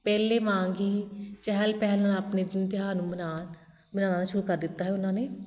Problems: constant background noise